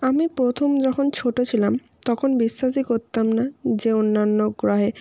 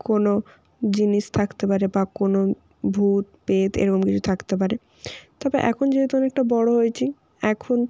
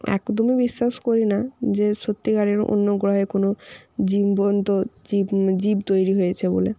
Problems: constant background noise